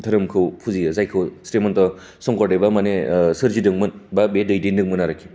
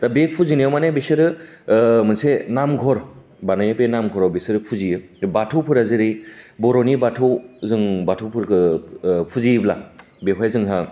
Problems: constant background noise